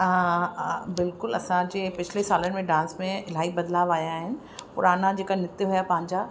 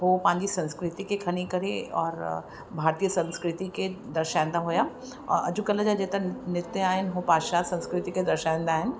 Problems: constant background noise, echo